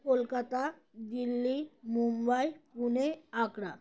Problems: constant background noise, background conversations at intervals